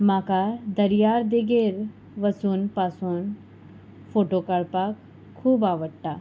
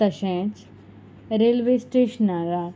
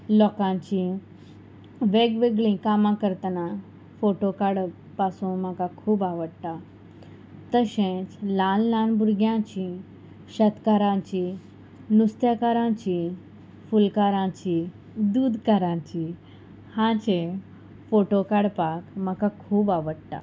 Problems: constant background noise